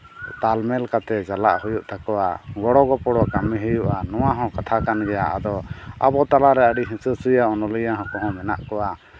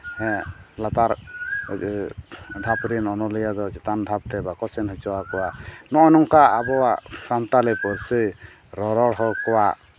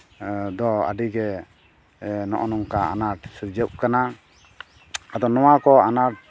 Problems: none marked